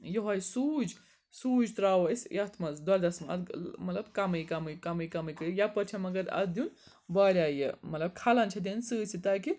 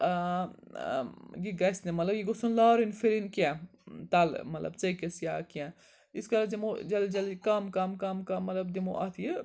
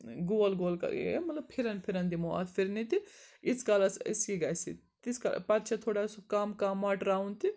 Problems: background sounds at intervals, background conversations at intervals